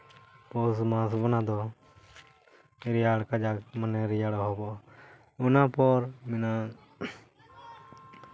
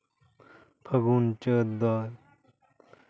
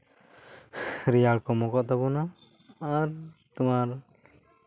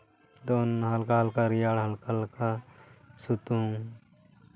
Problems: background sounds at intervals, background conversations at intervals